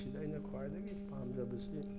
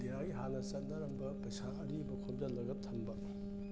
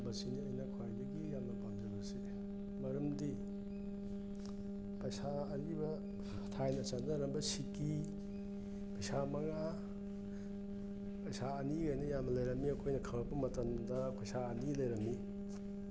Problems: constant background noise